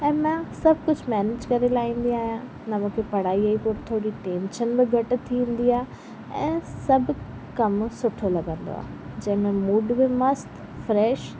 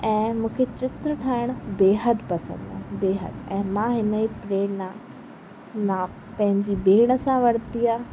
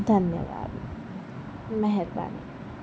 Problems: constant background noise